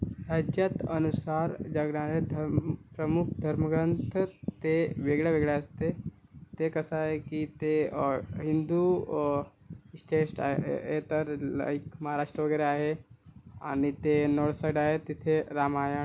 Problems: none marked